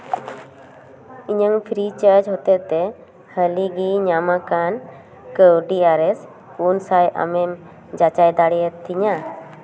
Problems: none marked